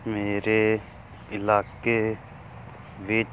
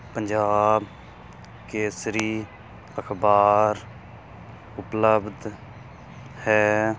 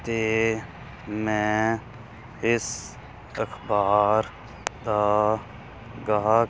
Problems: none marked